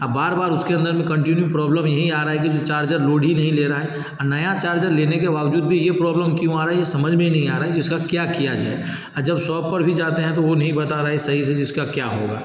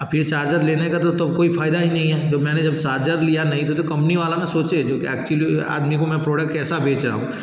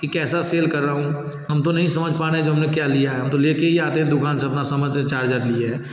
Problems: constant background noise, background conversations at intervals